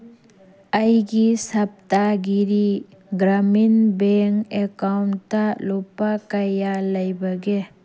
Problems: background sounds at intervals